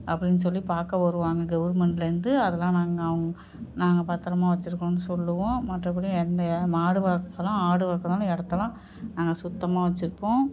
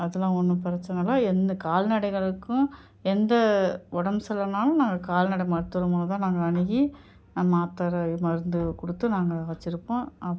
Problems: background sounds at intervals